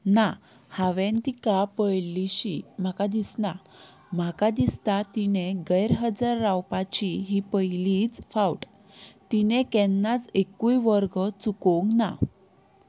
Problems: none marked